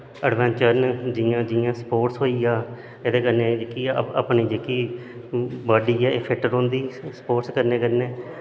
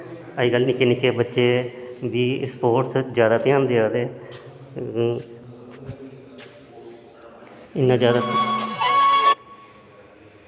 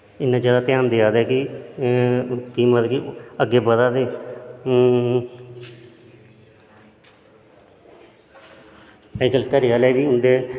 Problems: constant background noise